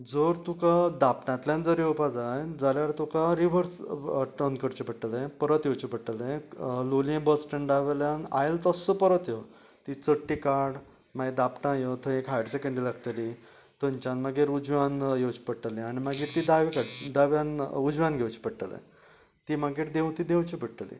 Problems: none marked